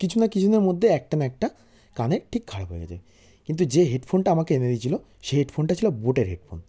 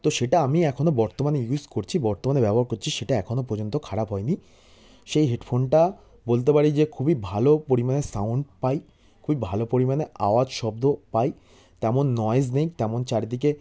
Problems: background sounds at intervals